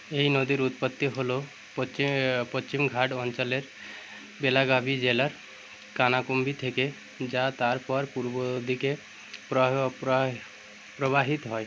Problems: constant background noise